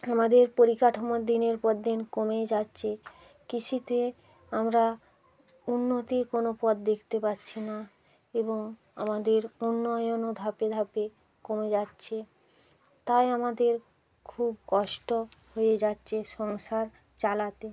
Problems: constant background noise